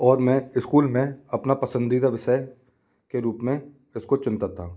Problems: none marked